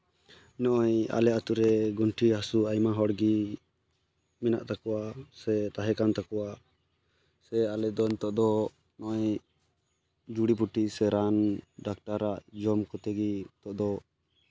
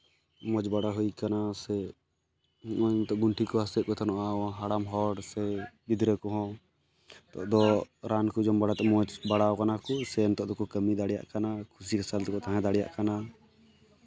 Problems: background conversations at intervals